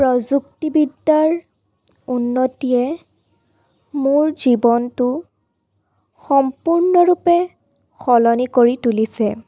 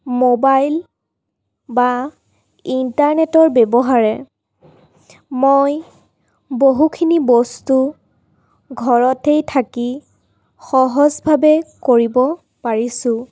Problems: none marked